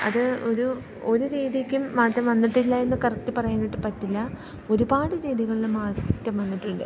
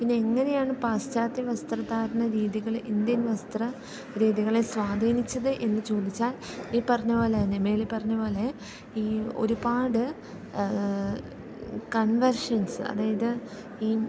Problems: background sounds at intervals